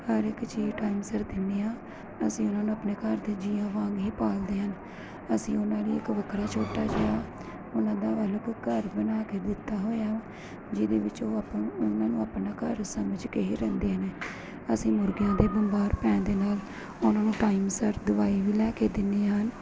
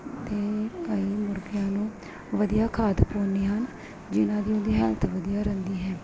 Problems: constant background noise